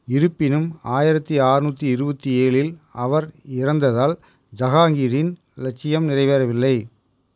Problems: none marked